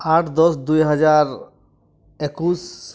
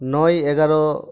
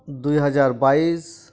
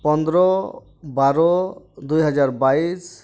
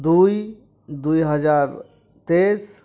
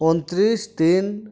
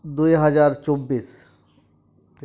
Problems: none marked